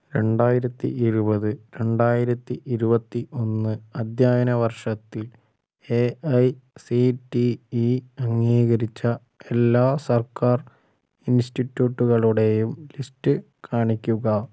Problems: low volume